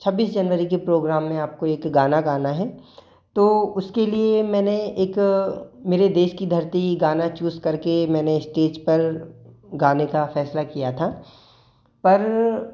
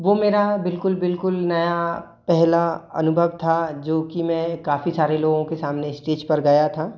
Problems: none marked